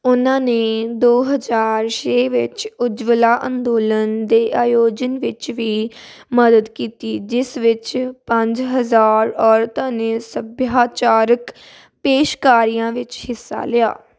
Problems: background sounds at intervals